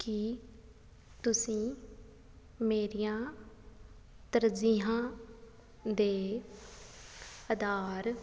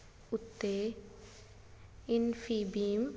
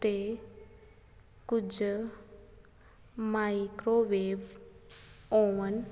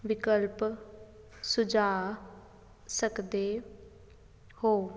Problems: background sounds at intervals